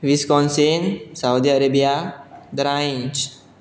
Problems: none marked